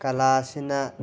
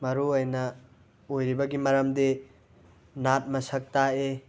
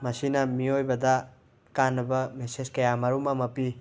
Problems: background sounds at intervals